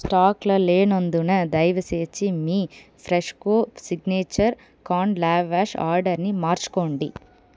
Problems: background sounds at intervals